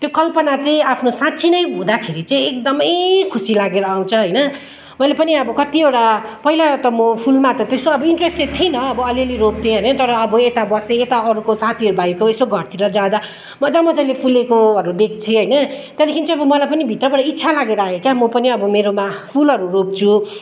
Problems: background conversations at intervals